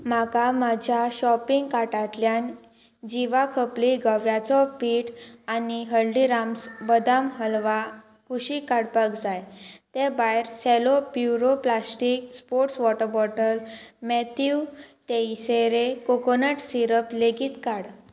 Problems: constant background noise